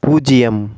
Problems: none marked